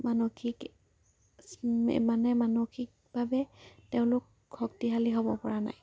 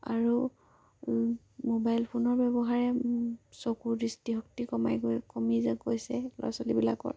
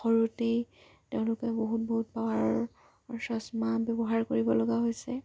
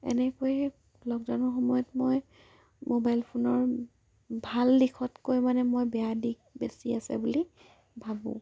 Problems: low volume